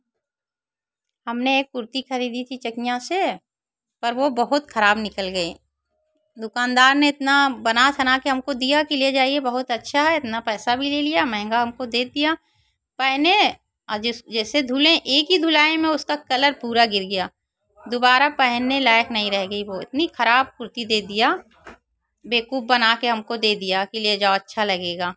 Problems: constant background noise